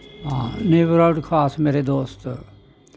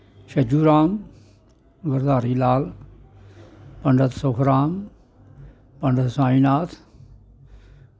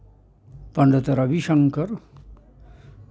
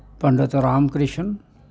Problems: background sounds at intervals